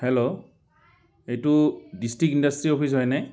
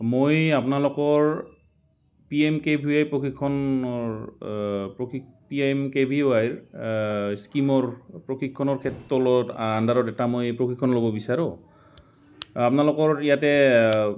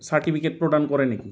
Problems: background sounds at intervals